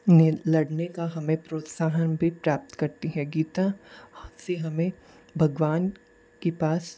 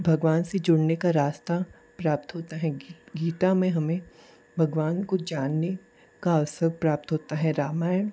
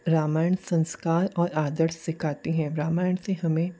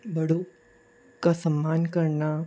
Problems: constant background noise